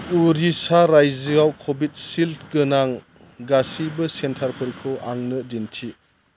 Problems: constant background noise